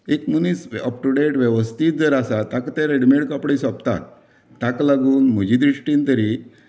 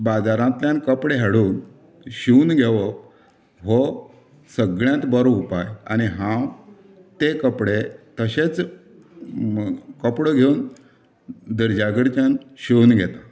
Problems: background conversations at intervals